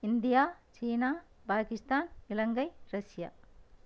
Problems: low volume